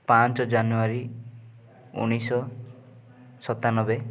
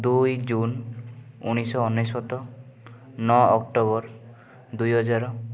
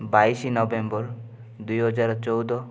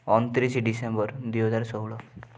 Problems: background sounds at intervals